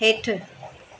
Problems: constant background noise, echo